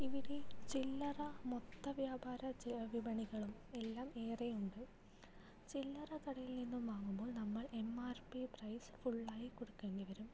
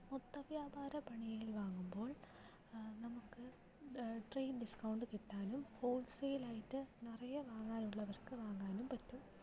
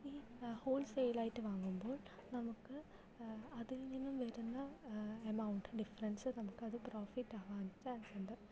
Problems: low volume